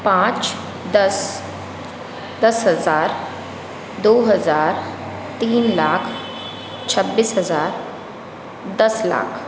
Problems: constant background noise